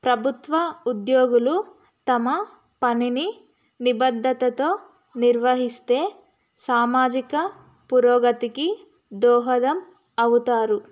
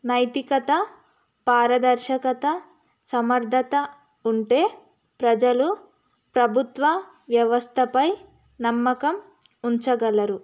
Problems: none marked